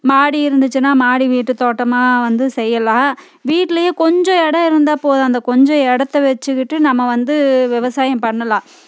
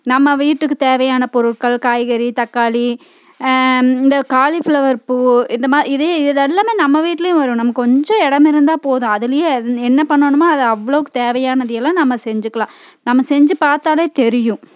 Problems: constant background noise